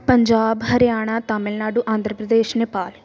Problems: background sounds at intervals